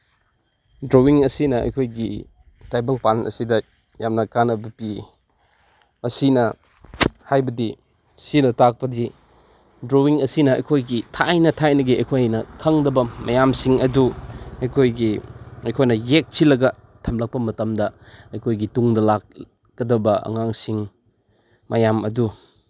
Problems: background sounds at intervals